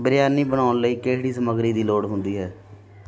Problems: continuous background conversations